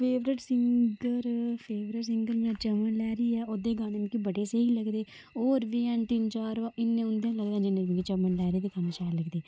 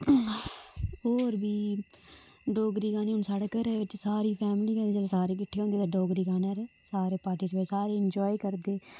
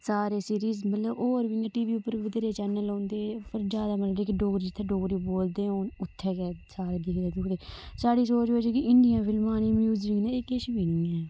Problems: constant background noise